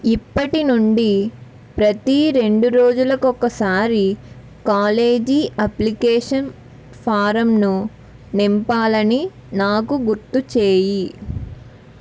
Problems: none marked